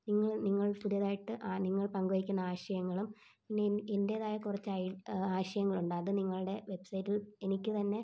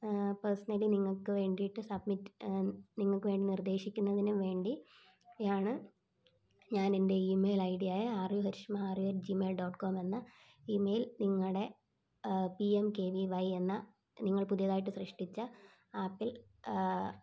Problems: low volume